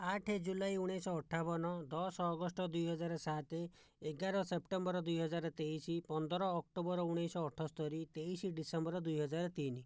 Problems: low volume